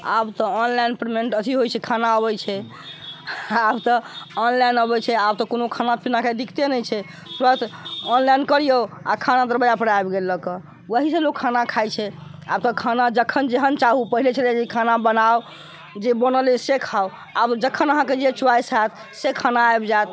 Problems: background conversations at intervals